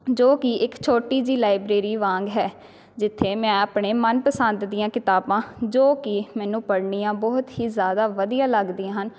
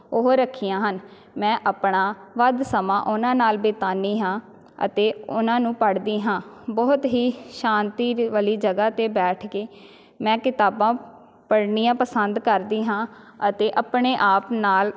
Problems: none marked